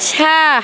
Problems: constant background noise